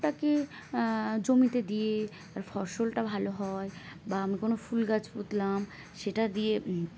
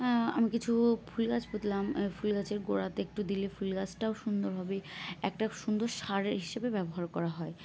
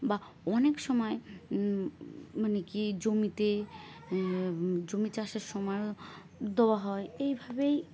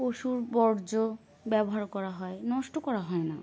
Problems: background sounds at intervals